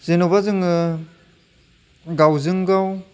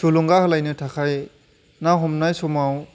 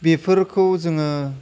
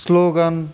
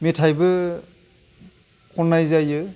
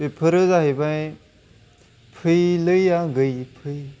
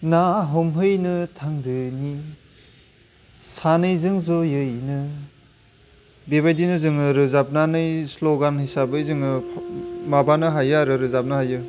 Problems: background sounds at intervals